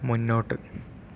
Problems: low volume